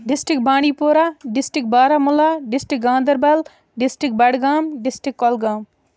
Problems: none marked